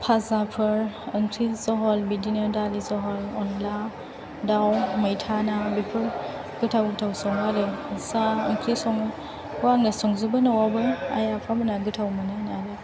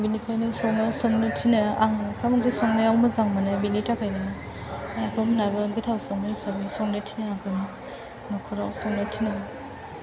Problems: low volume